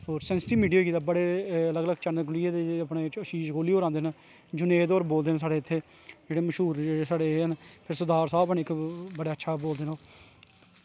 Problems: constant background noise